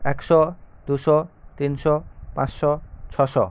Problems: none marked